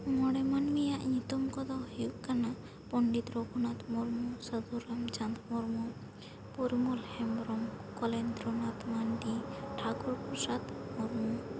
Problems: constant background noise